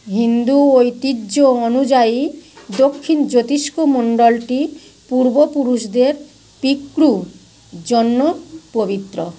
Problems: constant background noise